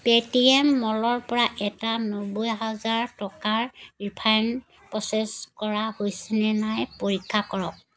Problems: constant background noise